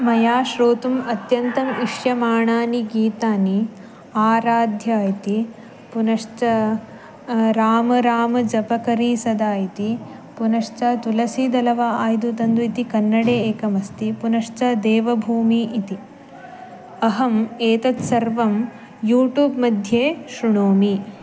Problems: background sounds at intervals